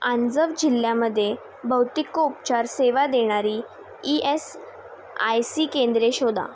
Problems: none marked